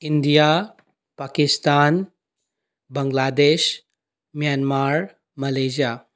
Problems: none marked